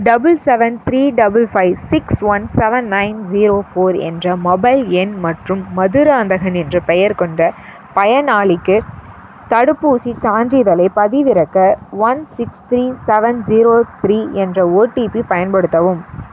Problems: constant background noise